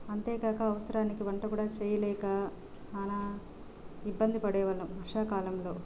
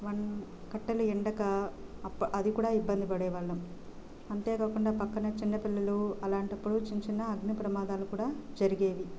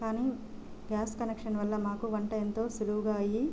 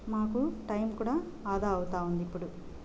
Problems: constant background noise, low volume